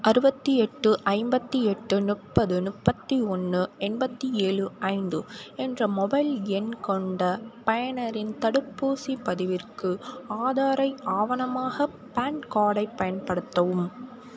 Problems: constant background noise